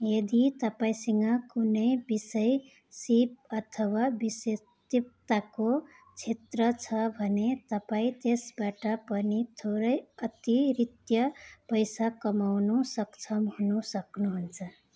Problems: background sounds at intervals